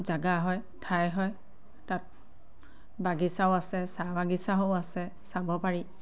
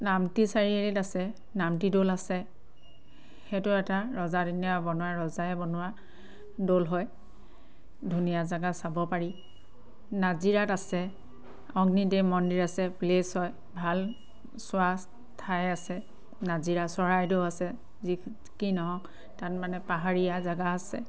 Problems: none marked